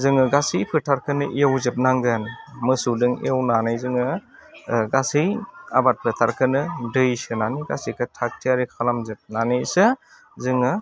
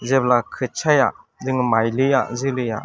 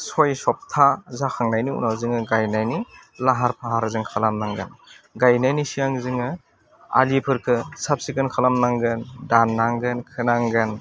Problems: constant background noise